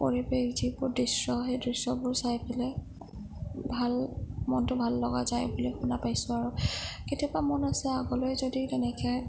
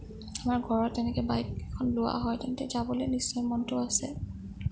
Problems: low volume